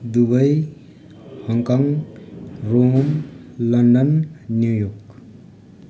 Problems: none marked